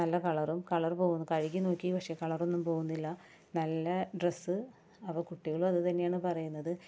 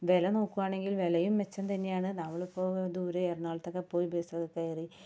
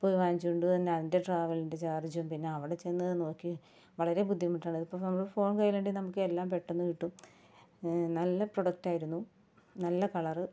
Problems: background sounds at intervals